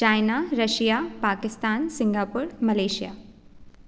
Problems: none marked